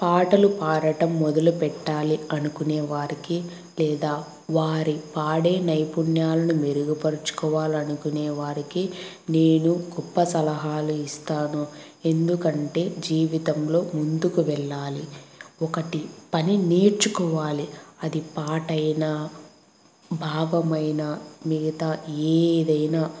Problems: constant background noise